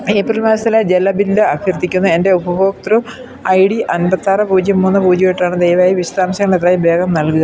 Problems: constant background noise